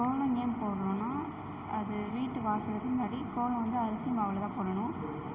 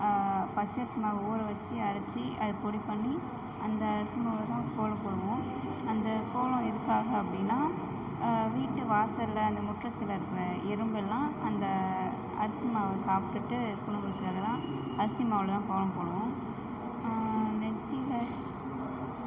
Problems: background sounds at intervals